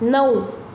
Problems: background sounds at intervals